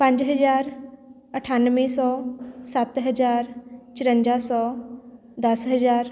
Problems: background sounds at intervals